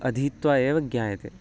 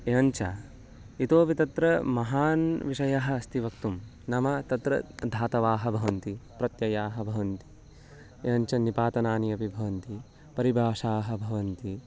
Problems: background sounds at intervals, background conversations at intervals